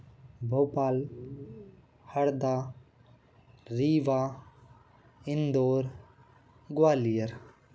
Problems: none marked